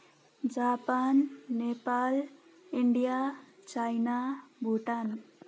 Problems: none marked